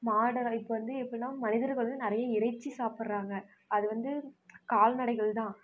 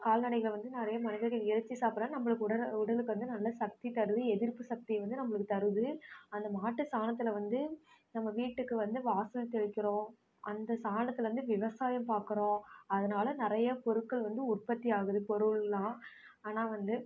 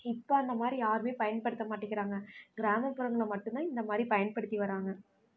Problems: background conversations at intervals